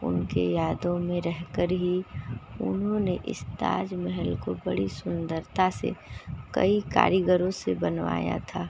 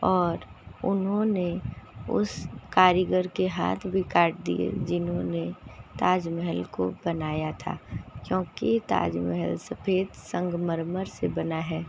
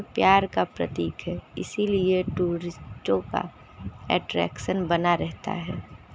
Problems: constant background noise